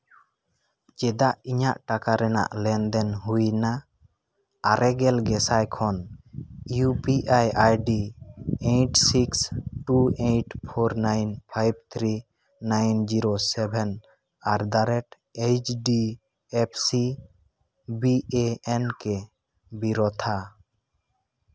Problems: constant background noise